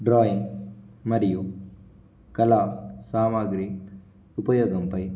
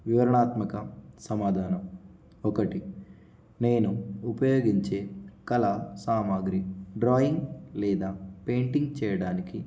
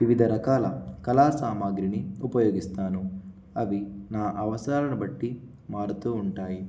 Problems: constant background noise